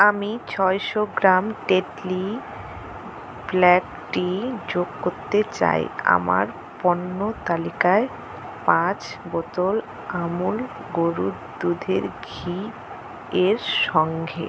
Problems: none marked